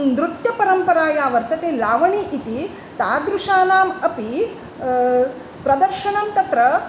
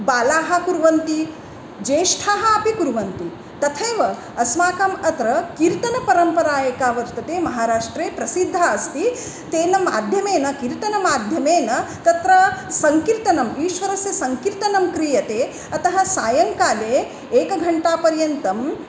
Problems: background conversations at intervals